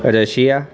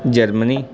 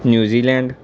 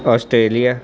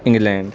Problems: constant background noise